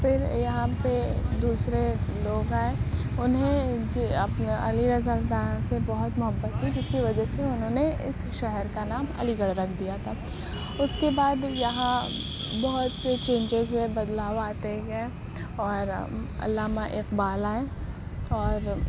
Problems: constant background noise, low volume